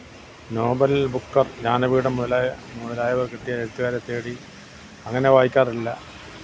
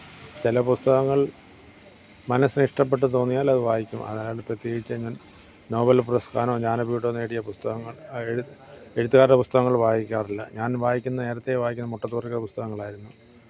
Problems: none marked